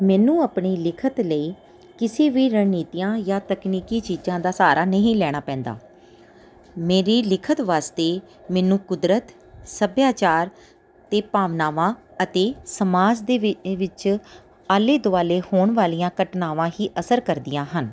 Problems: background sounds at intervals